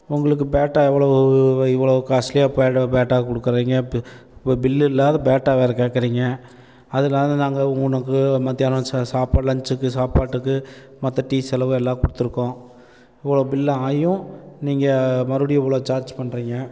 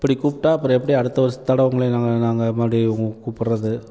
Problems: none marked